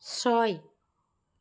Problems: none marked